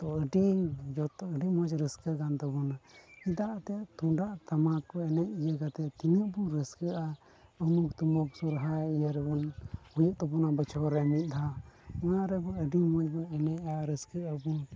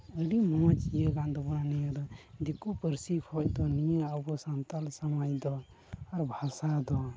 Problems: constant background noise, low volume